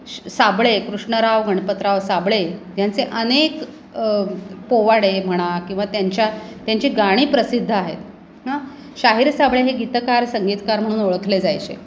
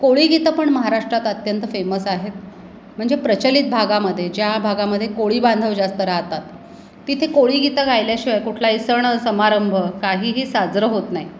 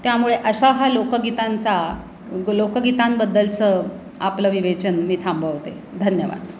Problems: none marked